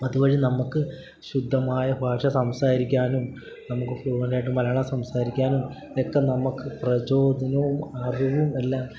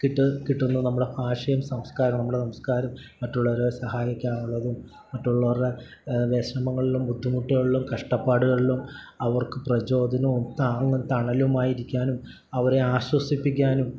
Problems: none marked